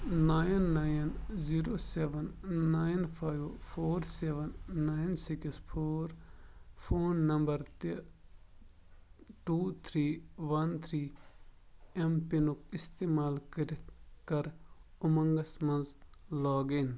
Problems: none marked